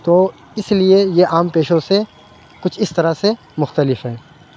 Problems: background sounds at intervals